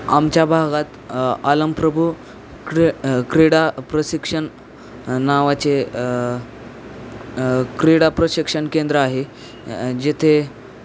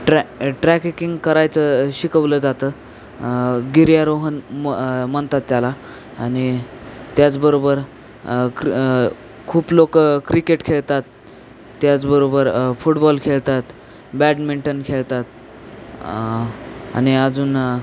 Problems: constant background noise